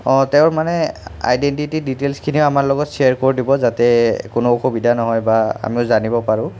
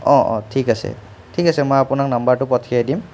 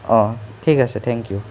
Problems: continuous background conversations